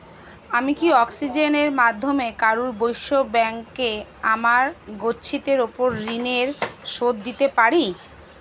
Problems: constant background noise